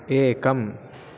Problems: constant background noise